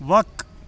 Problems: constant background noise